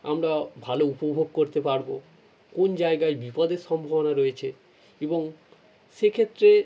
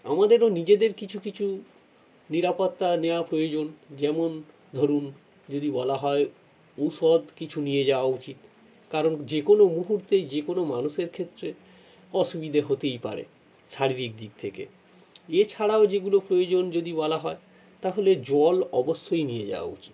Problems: none marked